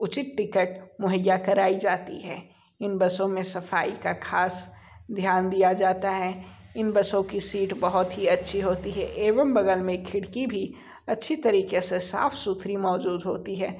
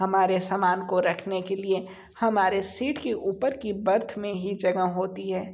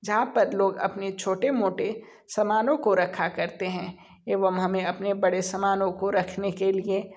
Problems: background sounds at intervals